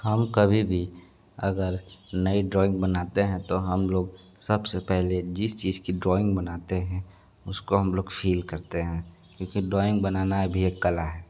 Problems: constant background noise